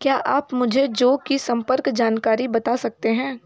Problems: background conversations at intervals